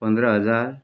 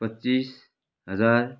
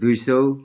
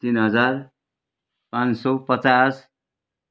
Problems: none marked